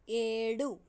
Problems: low volume